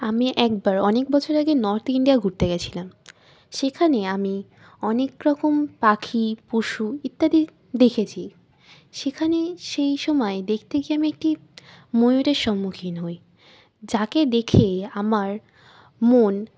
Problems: constant background noise